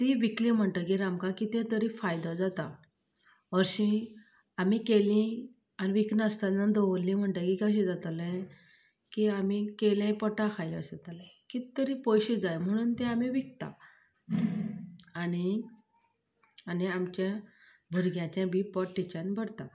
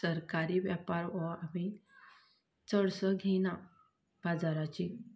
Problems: low volume